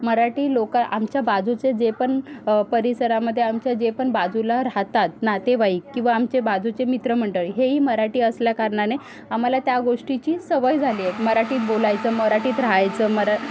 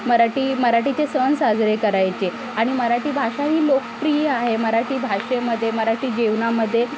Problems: none marked